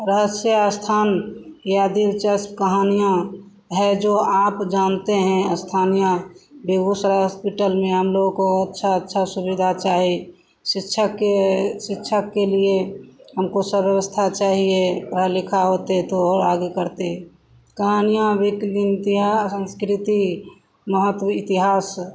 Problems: constant background noise